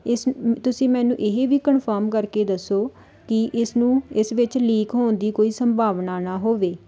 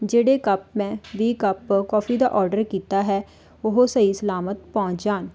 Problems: background sounds at intervals